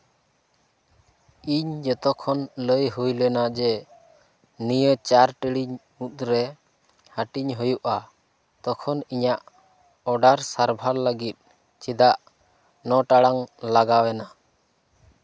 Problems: none marked